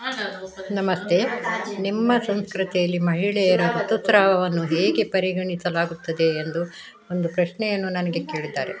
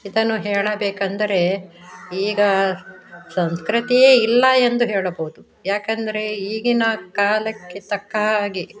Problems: background sounds at intervals